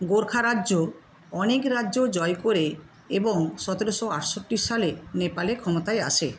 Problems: constant background noise